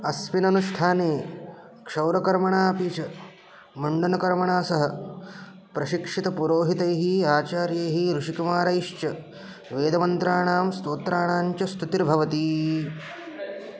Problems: background sounds at intervals